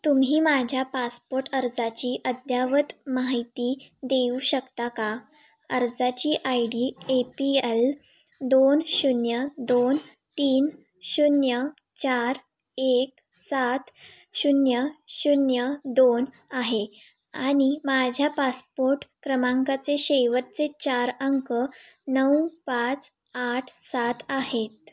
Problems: constant background noise, echo